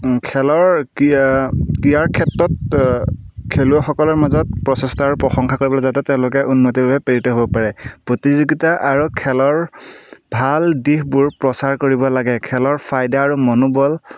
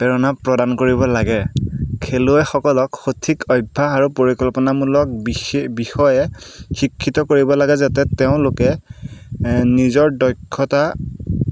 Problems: background sounds at intervals